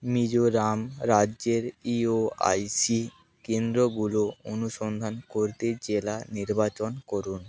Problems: background sounds at intervals, background conversations at intervals